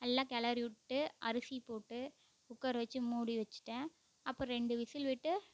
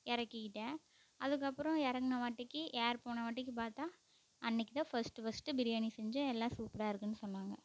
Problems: none marked